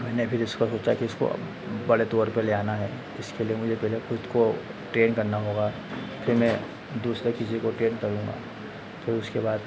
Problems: constant background noise, echo